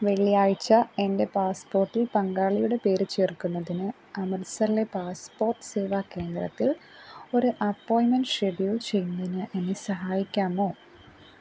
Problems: constant background noise